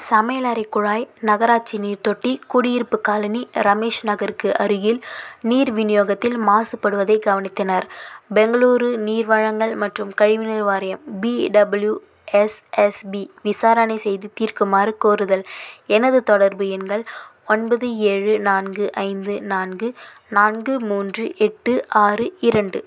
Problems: none marked